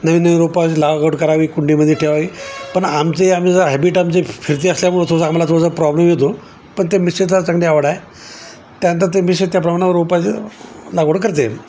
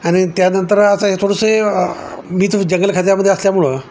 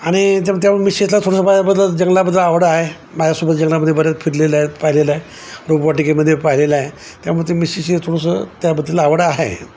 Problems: constant background noise, background conversations at intervals